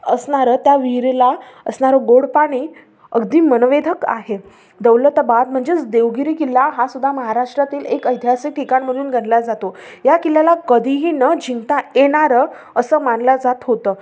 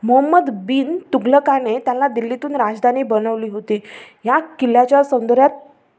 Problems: none marked